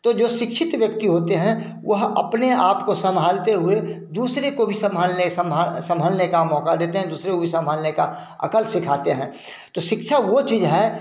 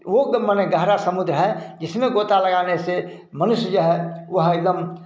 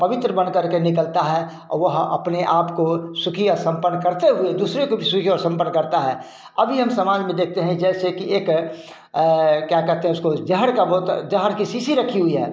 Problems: none marked